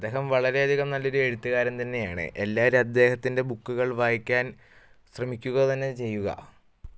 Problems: none marked